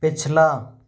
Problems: none marked